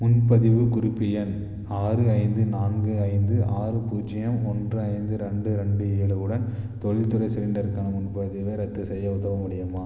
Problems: low volume